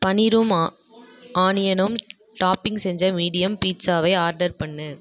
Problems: background conversations at intervals